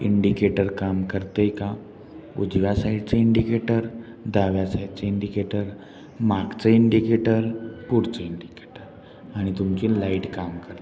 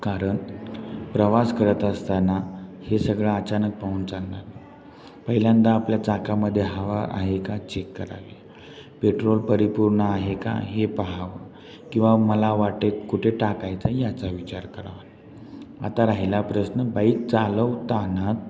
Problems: constant background noise, background conversations at intervals, low volume